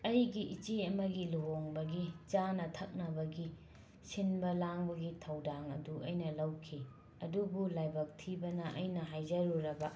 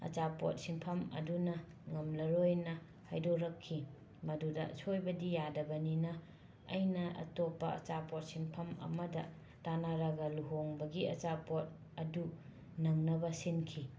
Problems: constant background noise, low volume